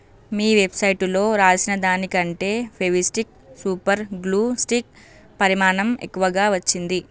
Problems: none marked